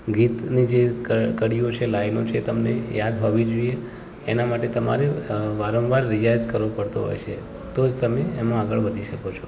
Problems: background sounds at intervals